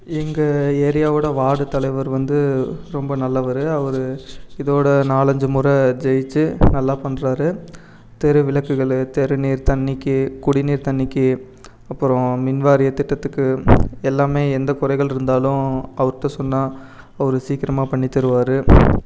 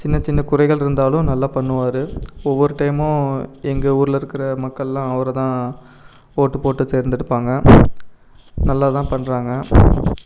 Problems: background sounds at intervals